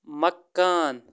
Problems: constant background noise